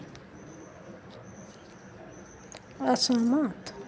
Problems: background sounds at intervals, echo